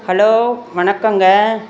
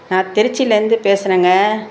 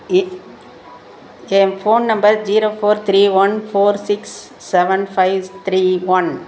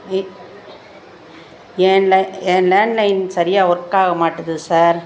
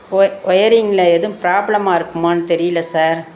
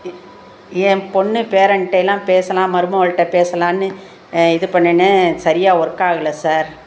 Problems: background sounds at intervals